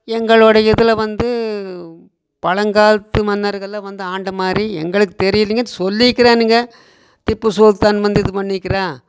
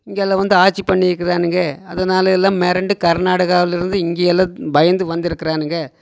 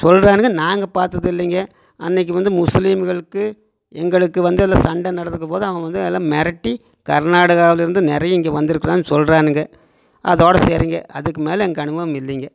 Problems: none marked